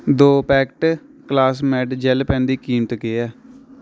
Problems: constant background noise